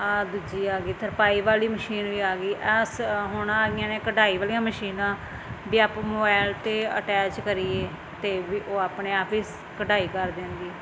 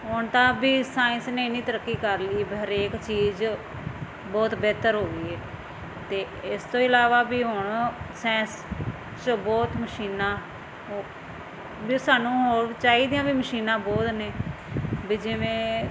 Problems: constant background noise